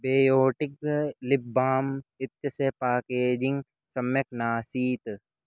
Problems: none marked